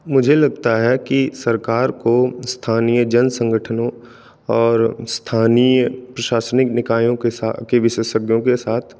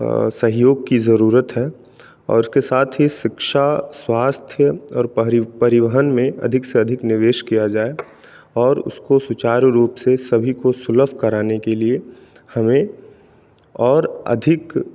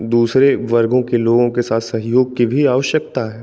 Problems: constant background noise